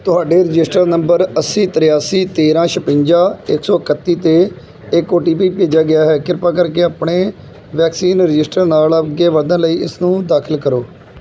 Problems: none marked